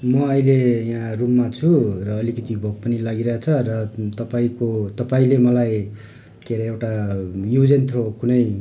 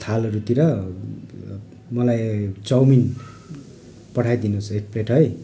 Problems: constant background noise, background conversations at intervals